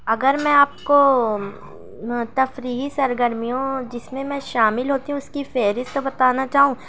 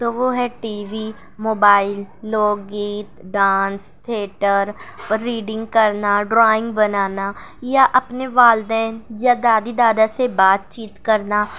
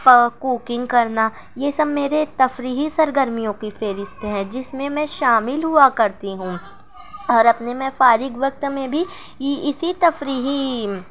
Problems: none marked